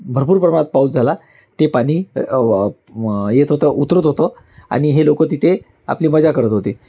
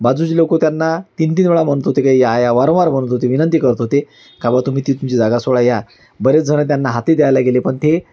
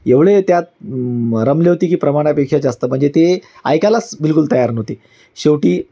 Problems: constant background noise, background conversations at intervals